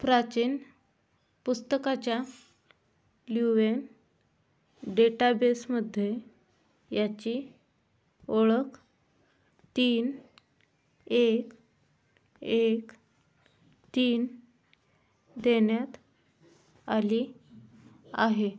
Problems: none marked